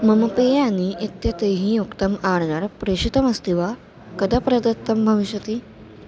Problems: constant background noise